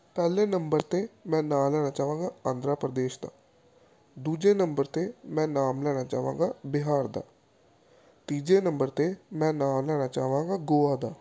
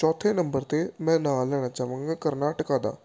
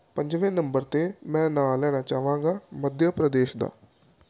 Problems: none marked